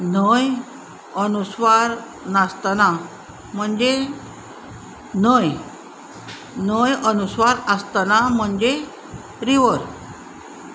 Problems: none marked